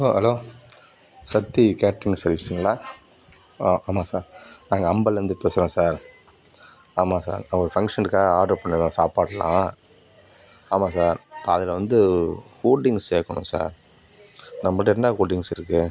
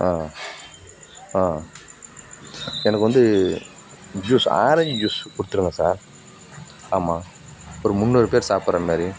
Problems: background sounds at intervals